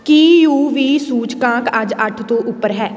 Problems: constant background noise